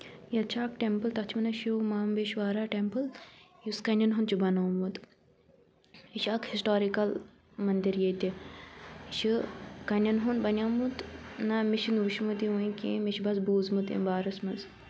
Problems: background sounds at intervals